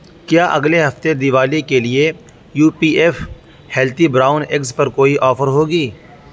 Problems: constant background noise, background conversations at intervals